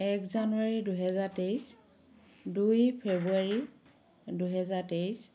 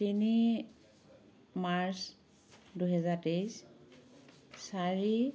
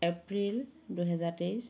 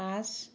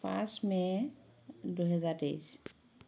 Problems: continuous background conversations